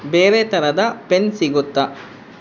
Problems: constant background noise